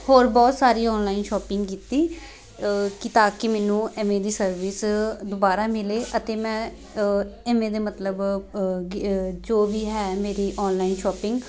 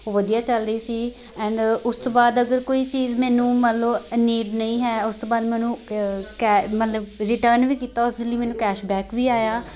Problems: constant background noise, continuous background conversations